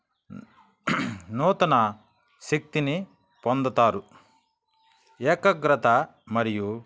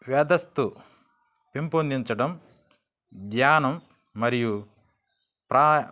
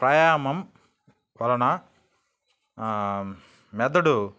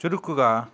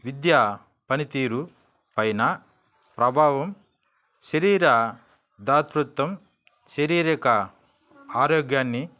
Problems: background sounds at intervals